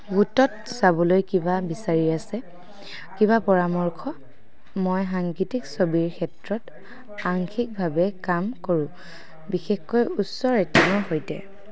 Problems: none marked